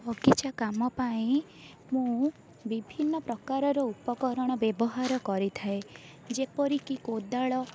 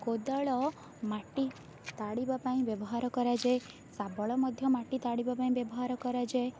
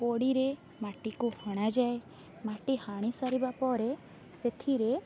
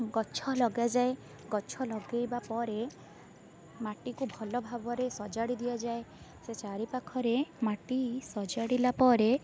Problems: none marked